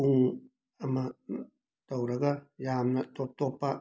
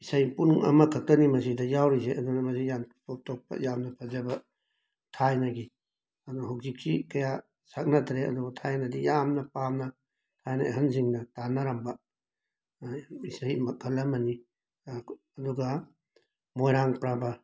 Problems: background sounds at intervals